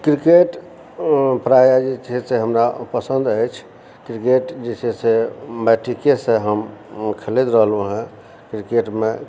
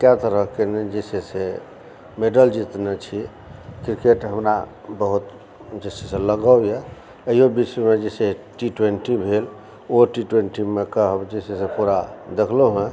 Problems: background sounds at intervals, background conversations at intervals